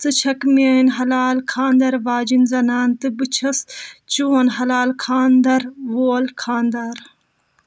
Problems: none marked